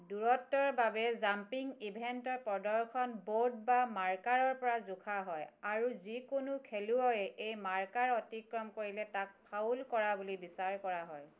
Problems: none marked